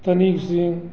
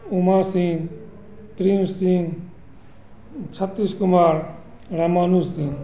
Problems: constant background noise